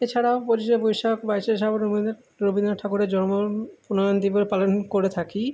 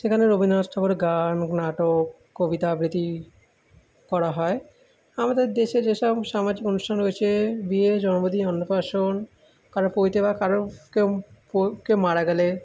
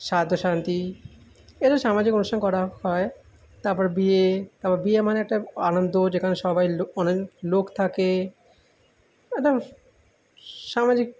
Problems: background sounds at intervals